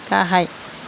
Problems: constant background noise